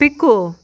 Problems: constant background noise